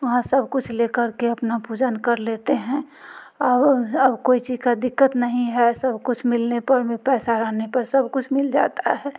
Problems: none marked